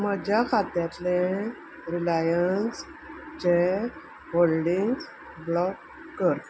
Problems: constant background noise